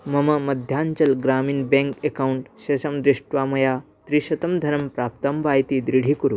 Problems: none marked